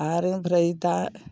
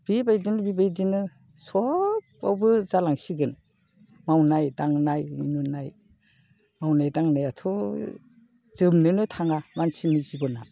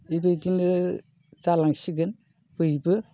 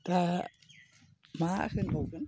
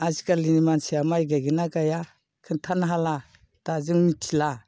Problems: none marked